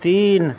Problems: constant background noise